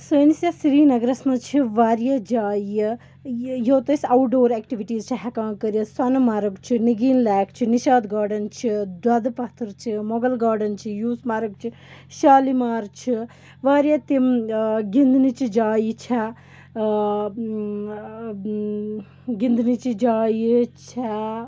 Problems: background sounds at intervals